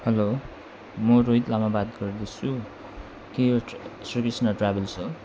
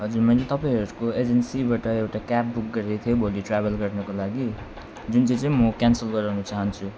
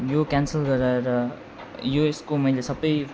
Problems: background sounds at intervals